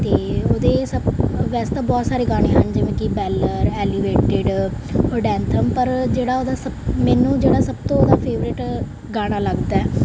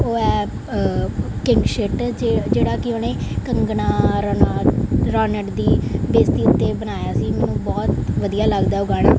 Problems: background sounds at intervals